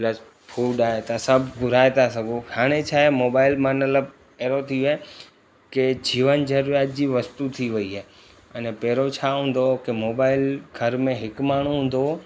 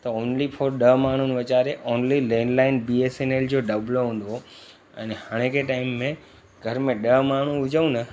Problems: constant background noise